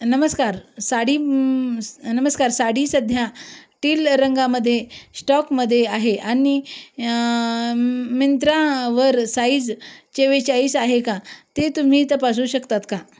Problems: background sounds at intervals